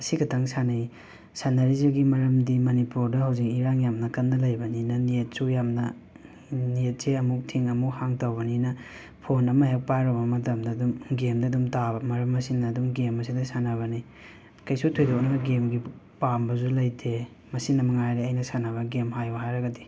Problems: background sounds at intervals